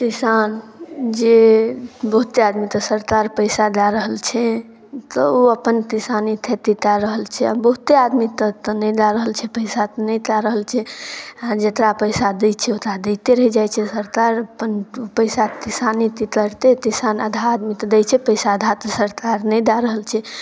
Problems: none marked